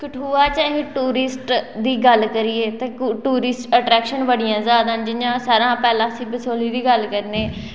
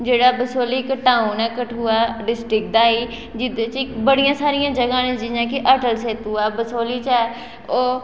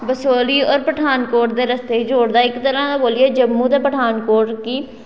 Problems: background sounds at intervals, echo